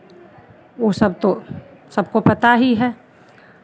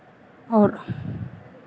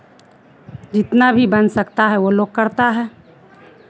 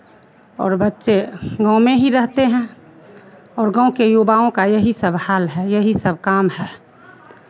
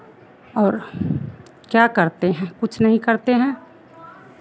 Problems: none marked